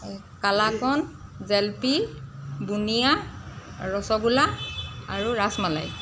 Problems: background sounds at intervals